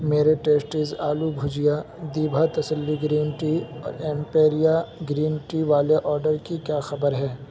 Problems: constant background noise, low volume